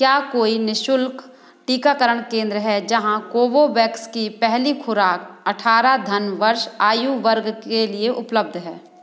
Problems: constant background noise